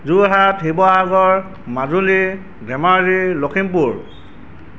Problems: none marked